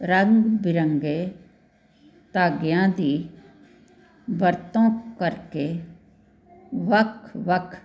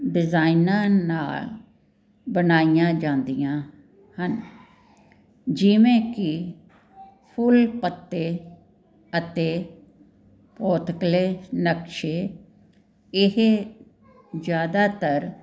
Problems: none marked